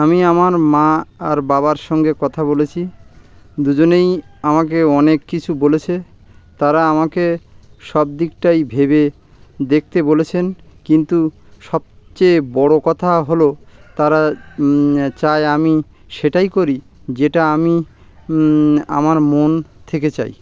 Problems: constant background noise